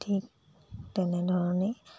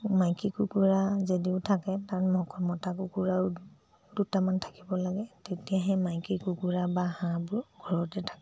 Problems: low volume